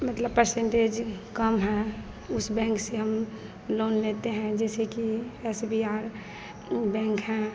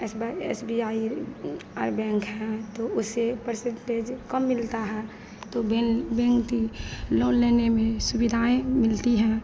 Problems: continuous background conversations